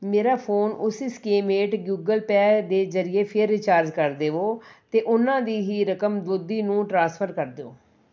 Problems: none marked